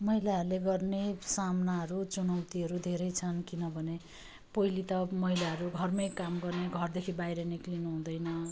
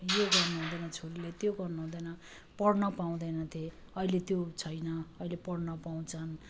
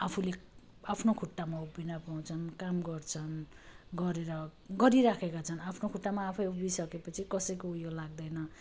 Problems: none marked